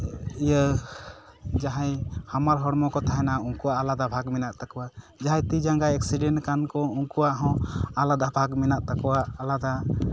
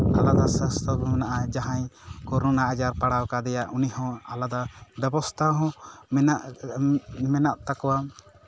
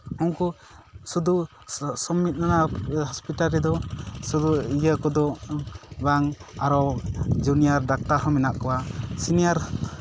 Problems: constant background noise